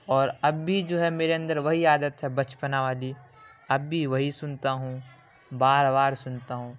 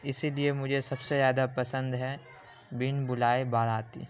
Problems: constant background noise